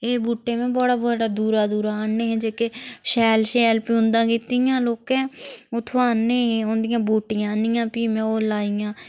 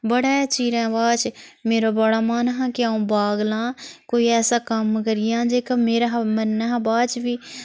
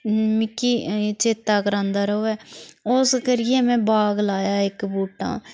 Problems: constant background noise